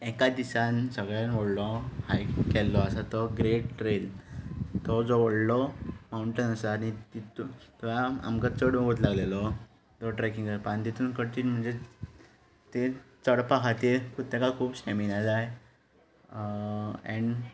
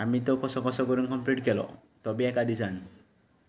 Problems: constant background noise